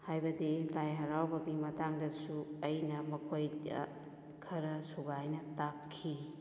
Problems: echo